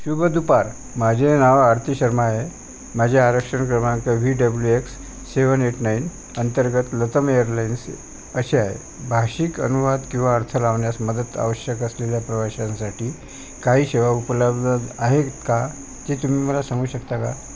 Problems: constant background noise